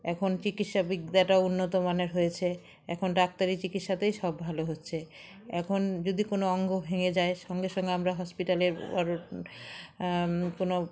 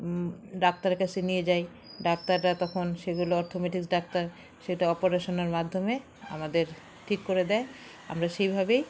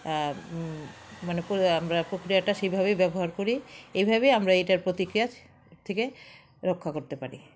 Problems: none marked